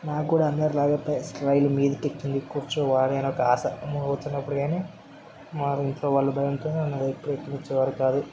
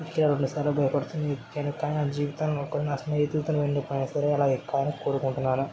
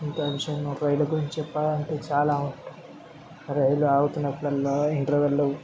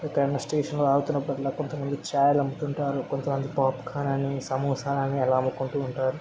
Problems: constant background noise, background conversations at intervals